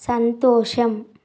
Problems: constant background noise